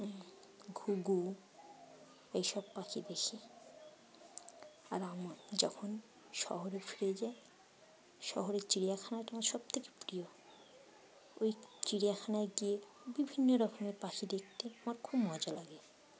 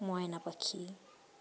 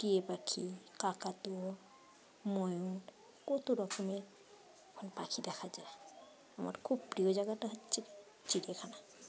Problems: none marked